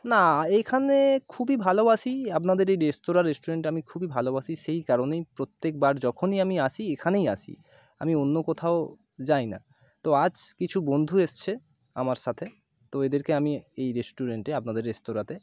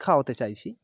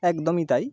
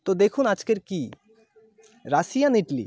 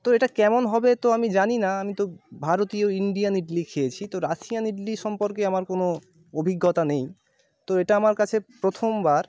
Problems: none marked